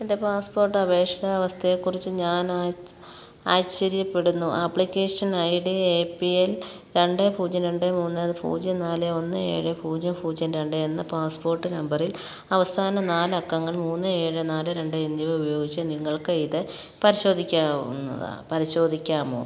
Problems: background sounds at intervals